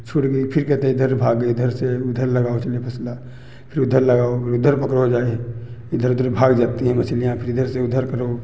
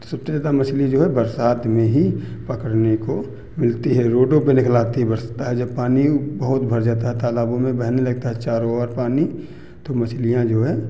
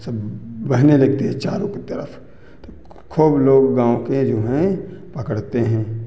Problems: constant background noise, background conversations at intervals